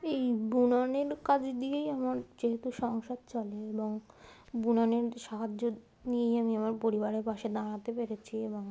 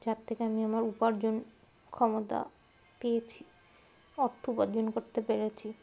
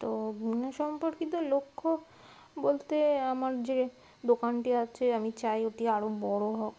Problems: none marked